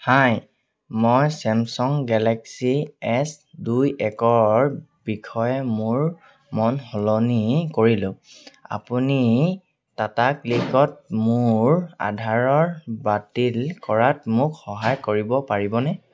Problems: none marked